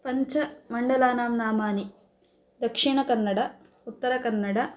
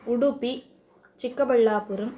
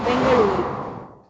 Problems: background sounds at intervals